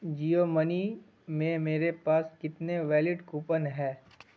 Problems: constant background noise